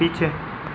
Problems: none marked